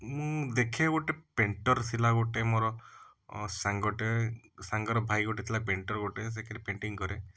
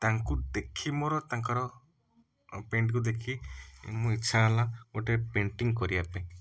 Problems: background sounds at intervals